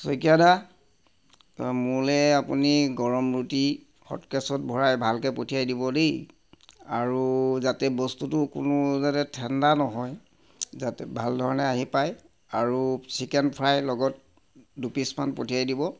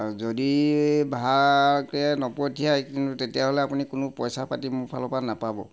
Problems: constant background noise